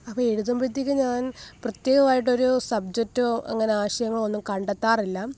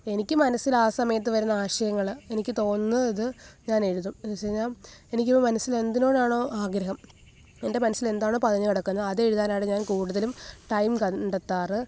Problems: background sounds at intervals